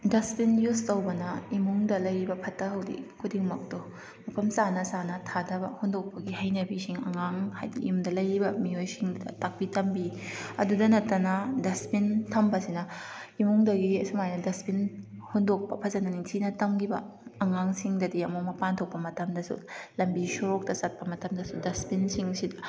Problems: none marked